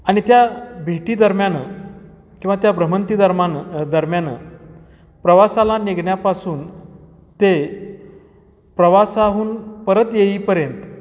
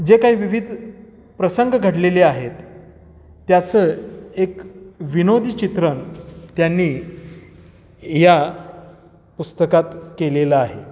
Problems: none marked